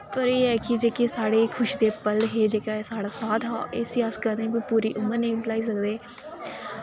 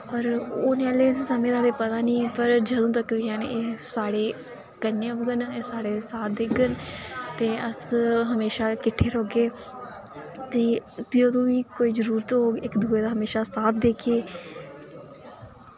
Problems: constant background noise